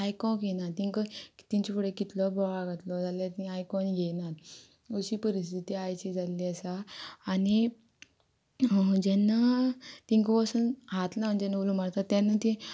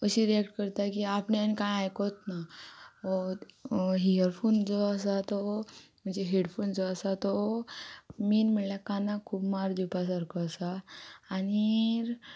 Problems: background sounds at intervals